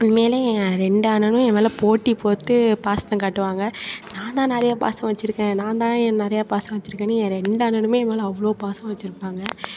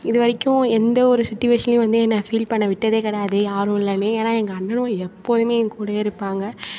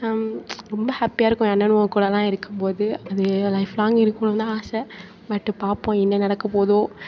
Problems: background sounds at intervals, continuous background conversations